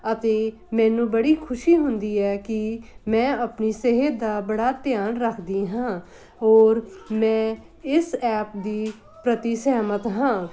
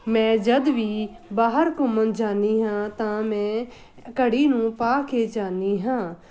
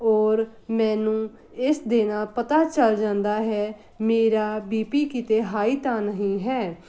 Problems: none marked